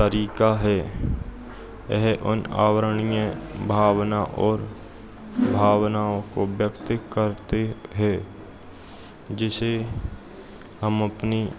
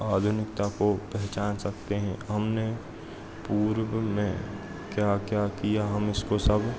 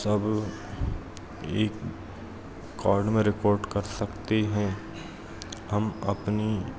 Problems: constant background noise